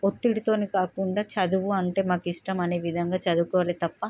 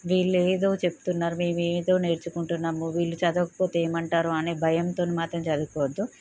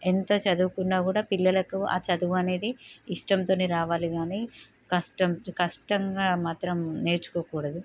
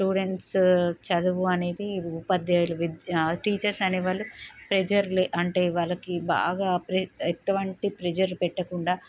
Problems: none marked